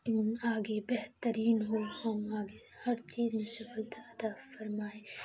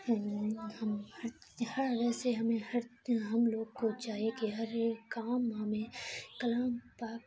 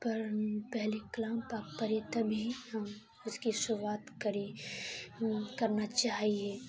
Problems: constant background noise, low volume